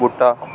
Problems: constant background noise